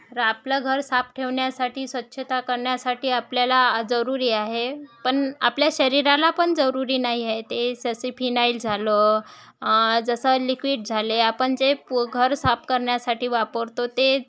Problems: background sounds at intervals, background conversations at intervals